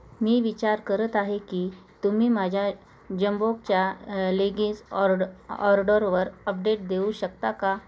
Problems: constant background noise, continuous background conversations